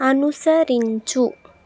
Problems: constant background noise